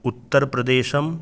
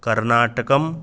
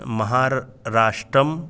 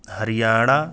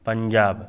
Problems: none marked